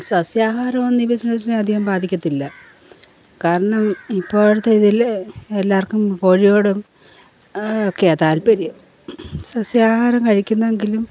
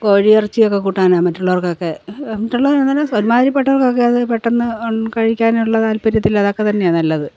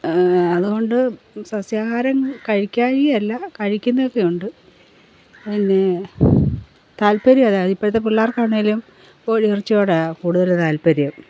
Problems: background sounds at intervals